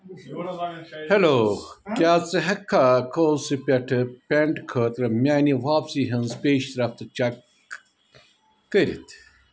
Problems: background sounds at intervals, background conversations at intervals